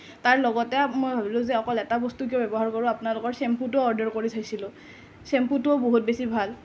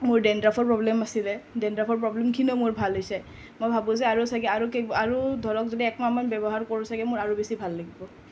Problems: none marked